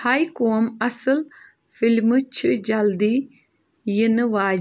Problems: background sounds at intervals